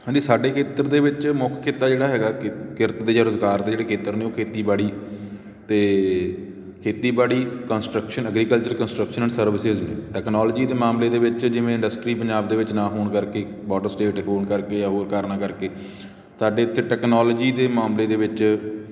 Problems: background sounds at intervals